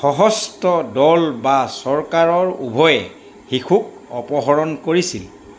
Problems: constant background noise